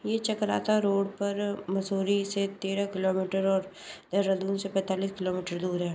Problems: constant background noise